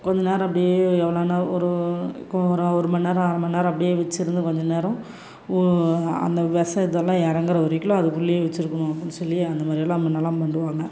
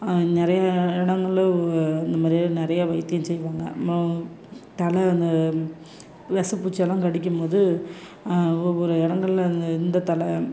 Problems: background sounds at intervals